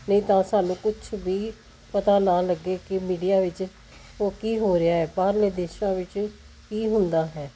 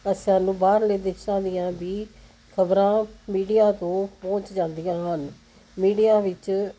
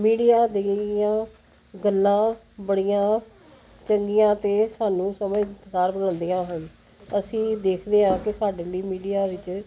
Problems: none marked